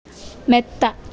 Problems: none marked